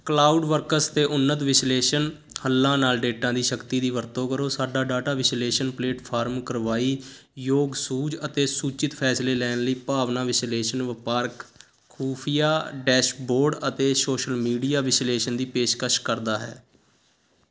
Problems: constant background noise